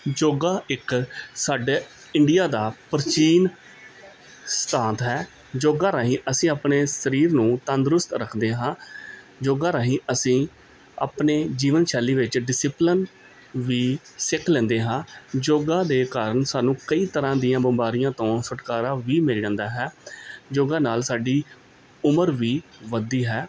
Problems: constant background noise